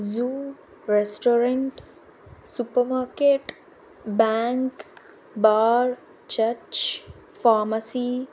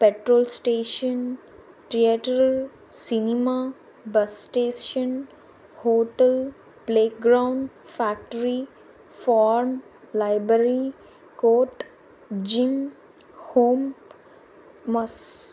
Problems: constant background noise